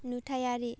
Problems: none marked